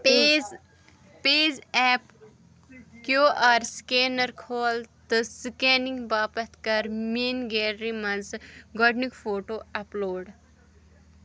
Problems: continuous background conversations